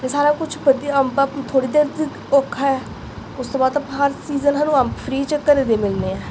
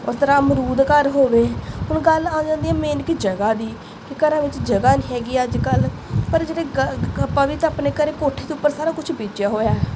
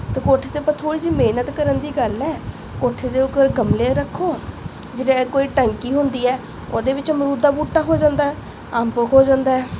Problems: constant background noise